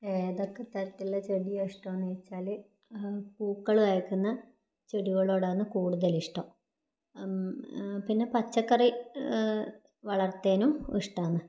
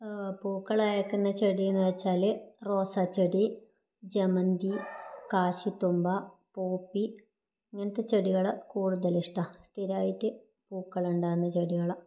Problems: low volume